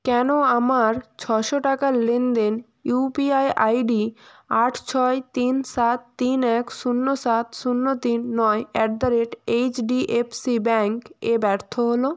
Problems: constant background noise